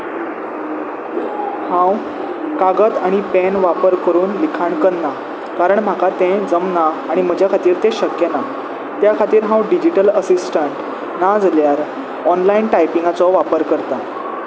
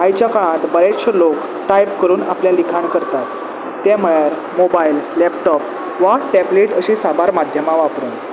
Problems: none marked